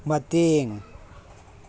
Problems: none marked